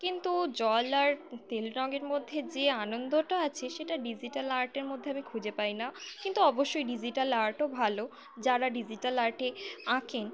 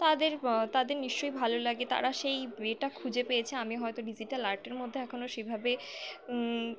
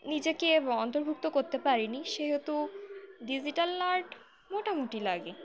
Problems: constant background noise